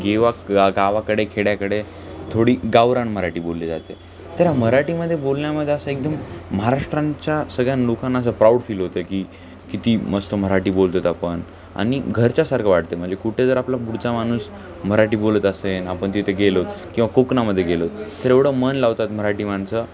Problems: constant background noise, continuous background conversations